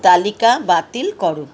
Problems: none marked